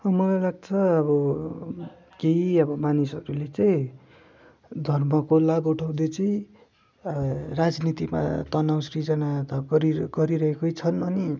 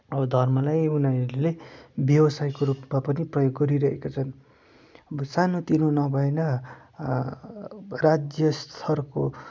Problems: none marked